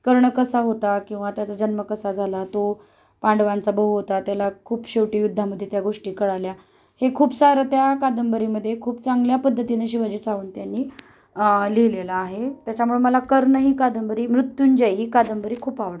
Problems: none marked